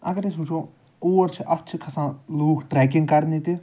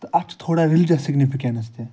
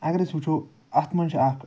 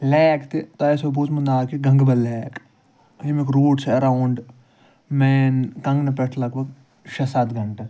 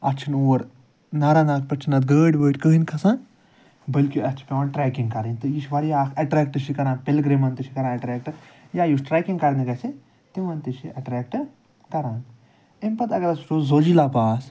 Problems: none marked